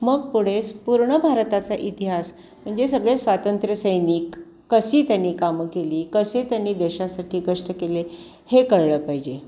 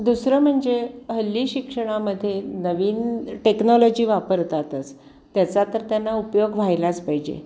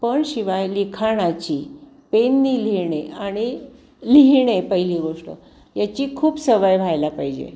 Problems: none marked